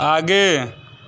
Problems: constant background noise, continuous background conversations